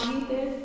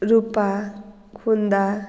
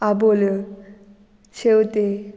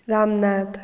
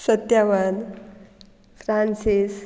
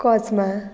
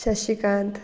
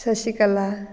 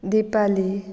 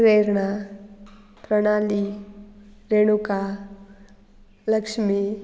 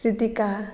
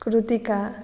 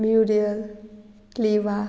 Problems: background sounds at intervals